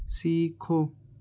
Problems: constant background noise